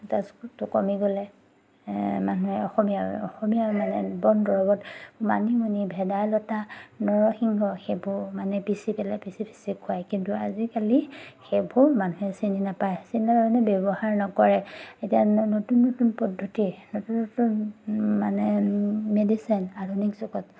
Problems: none marked